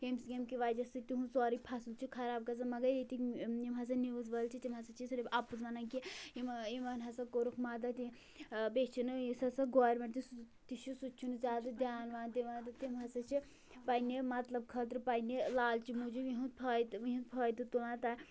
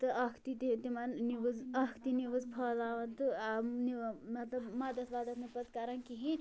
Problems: background conversations at intervals